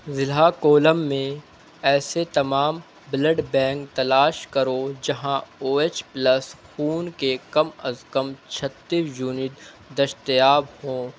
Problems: constant background noise